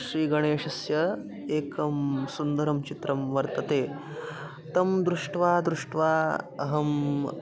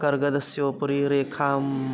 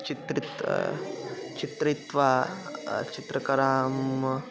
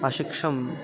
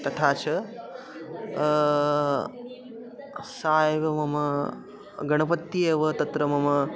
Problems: continuous background conversations